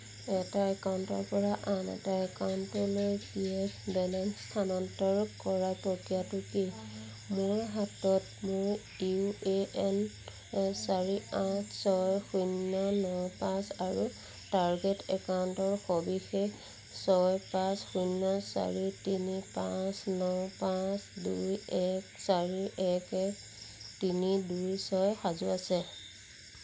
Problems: constant background noise